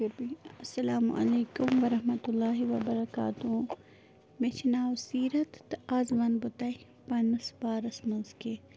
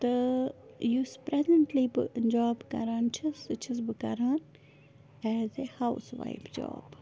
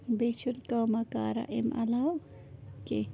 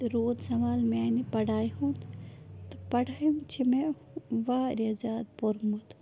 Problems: background sounds at intervals